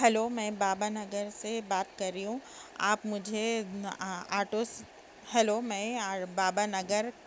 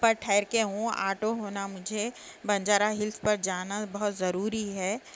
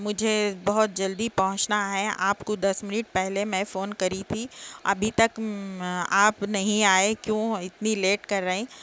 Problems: background sounds at intervals